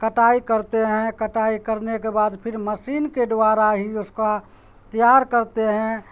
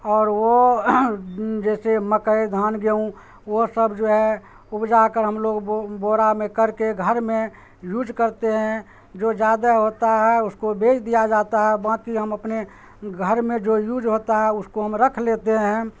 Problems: constant background noise